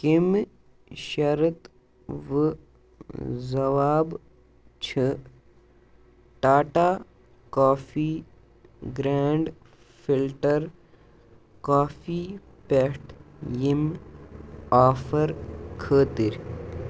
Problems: constant background noise